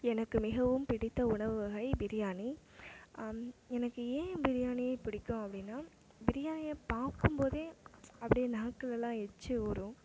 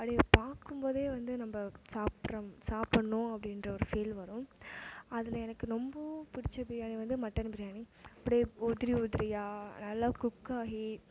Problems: background sounds at intervals